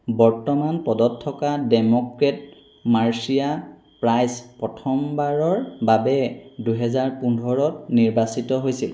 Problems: none marked